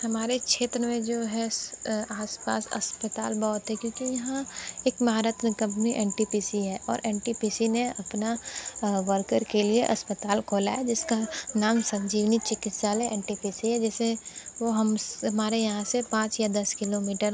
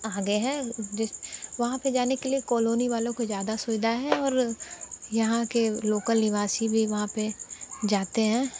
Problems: constant background noise